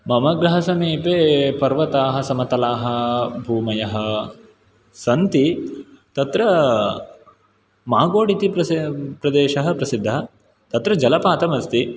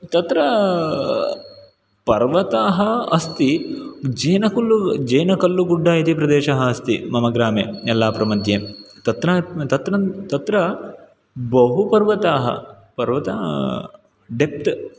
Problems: background sounds at intervals